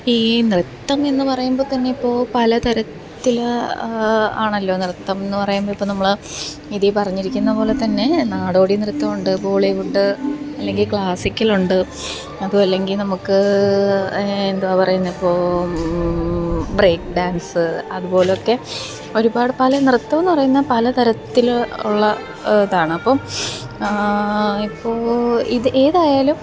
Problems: constant background noise